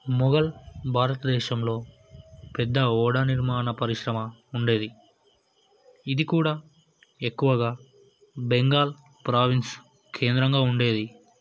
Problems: none marked